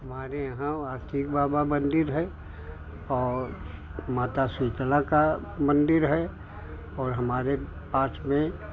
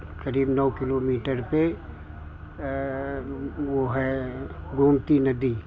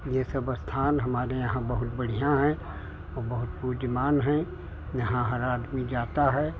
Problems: background conversations at intervals